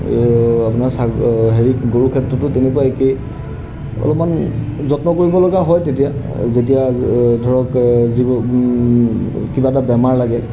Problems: background sounds at intervals